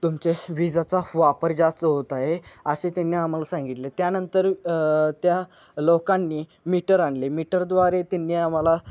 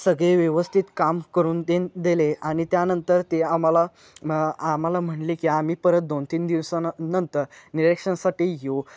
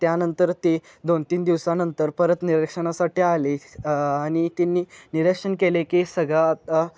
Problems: none marked